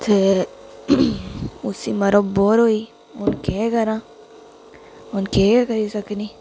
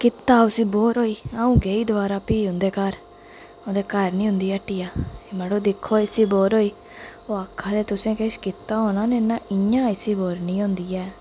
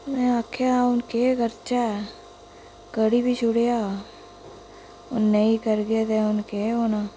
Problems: constant background noise, echo